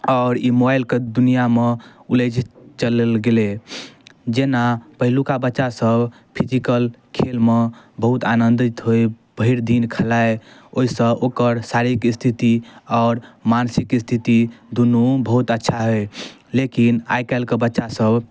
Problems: none marked